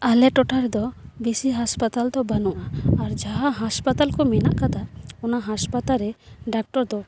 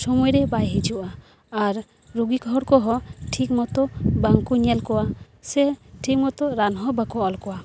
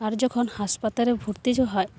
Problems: background sounds at intervals, background conversations at intervals